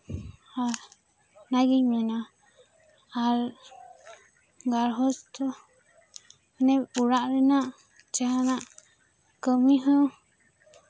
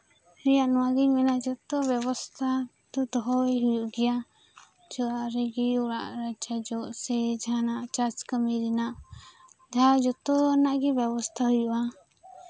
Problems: background sounds at intervals, background conversations at intervals